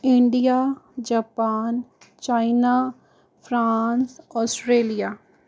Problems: background sounds at intervals